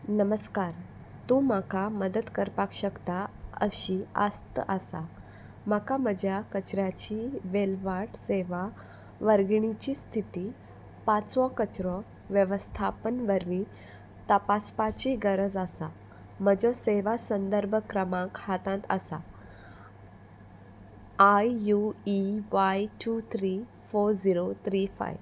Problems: constant background noise